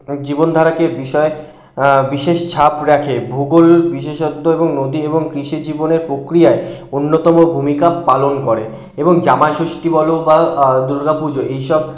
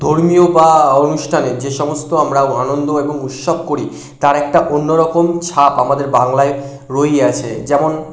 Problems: constant background noise